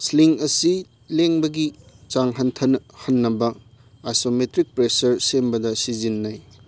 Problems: background sounds at intervals